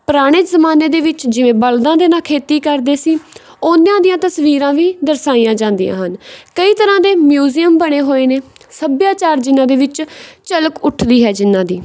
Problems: background sounds at intervals